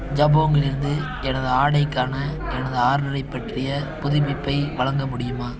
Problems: background sounds at intervals